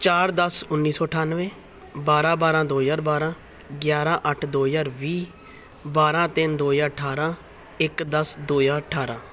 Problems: background sounds at intervals